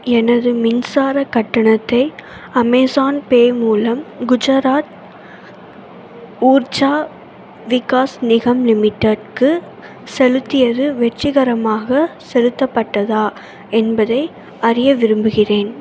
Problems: constant background noise